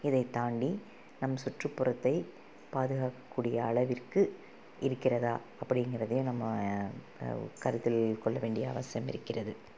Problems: constant background noise